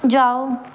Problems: none marked